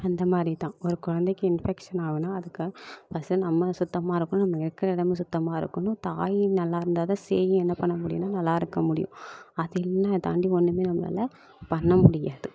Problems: constant background noise